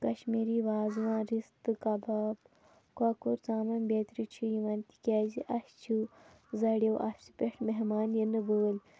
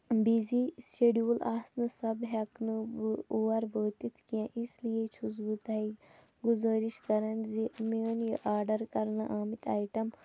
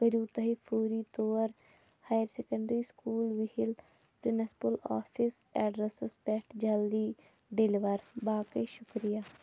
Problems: constant background noise